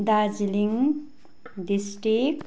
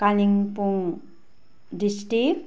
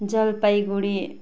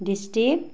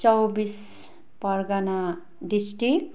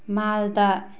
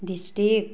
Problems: constant background noise